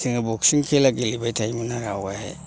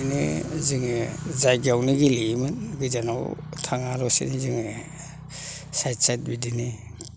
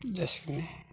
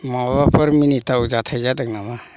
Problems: low volume